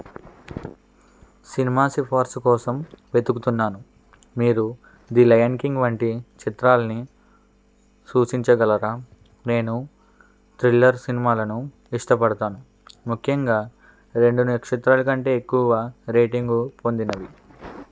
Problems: constant background noise